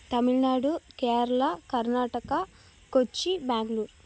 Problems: none marked